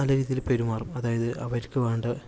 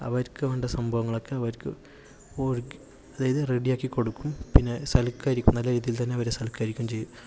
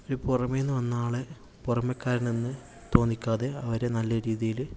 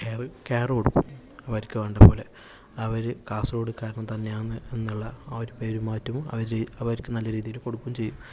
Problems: constant background noise, low volume